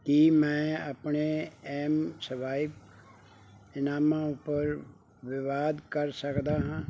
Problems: background sounds at intervals